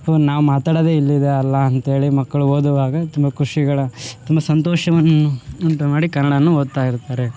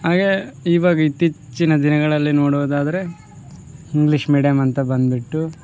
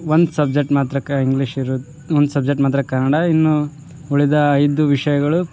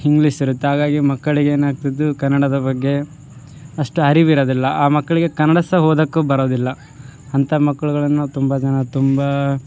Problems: background sounds at intervals